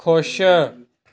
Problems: background conversations at intervals